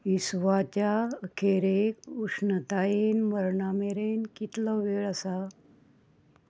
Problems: constant background noise